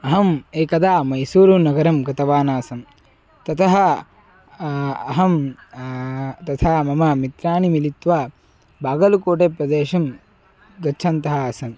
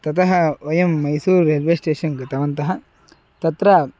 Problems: constant background noise, continuous background conversations